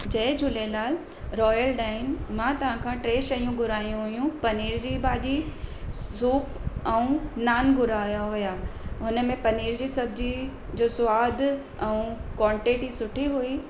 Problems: constant background noise